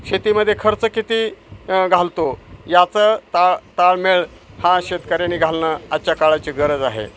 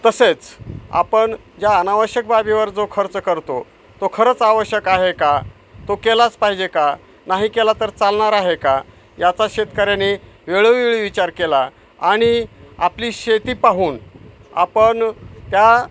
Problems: constant background noise